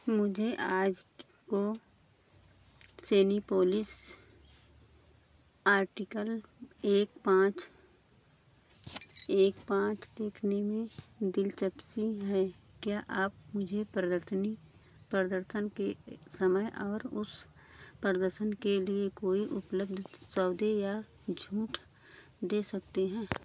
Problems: constant background noise